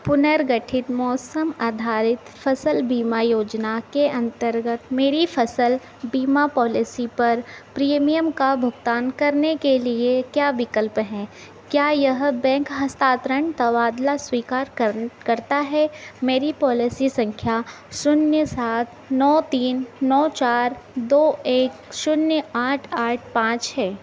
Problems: constant background noise